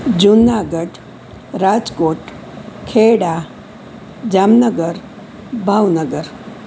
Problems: constant background noise